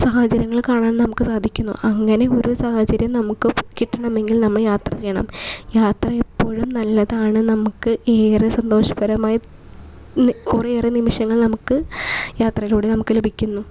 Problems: background sounds at intervals